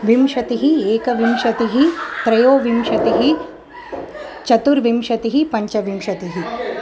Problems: continuous background conversations